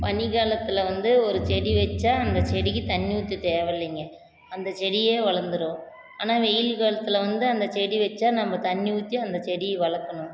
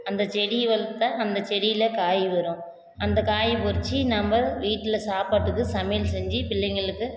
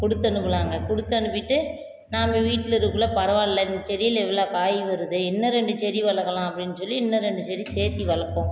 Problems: constant background noise